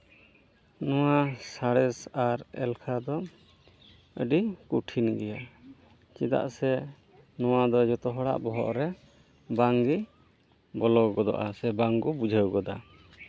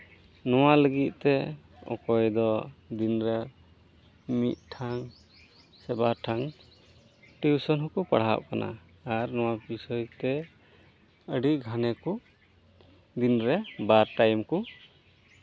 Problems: background sounds at intervals